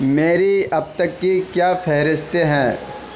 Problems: constant background noise